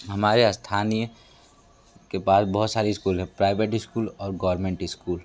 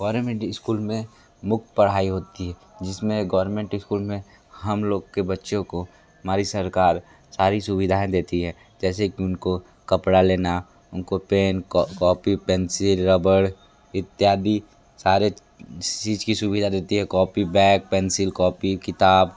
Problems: none marked